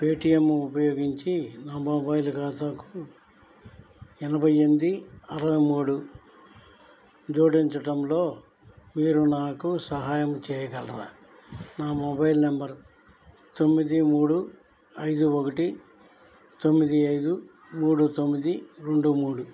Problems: none marked